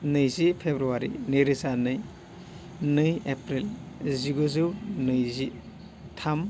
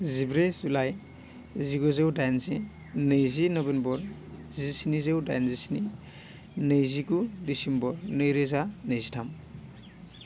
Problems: low volume